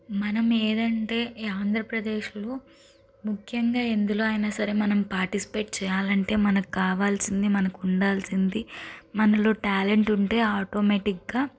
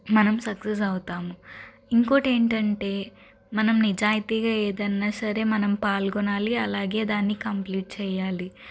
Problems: constant background noise